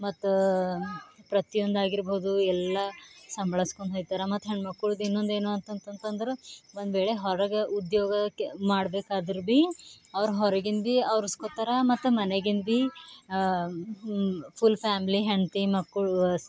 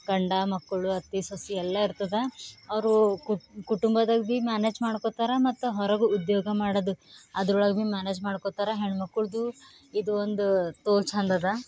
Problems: none marked